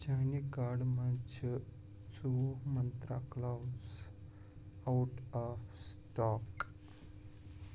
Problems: background sounds at intervals, low volume